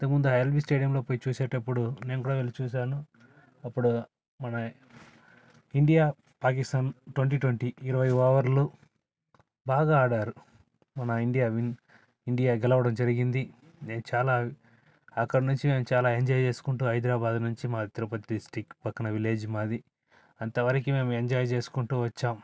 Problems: background sounds at intervals